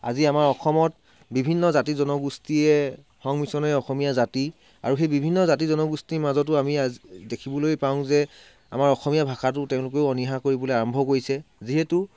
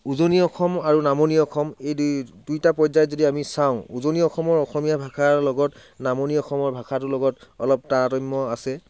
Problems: background sounds at intervals